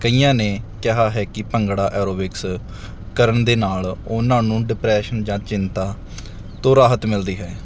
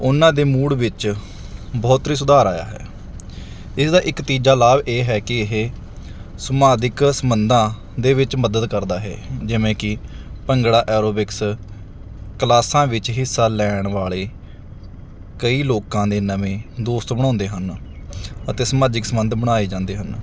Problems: background sounds at intervals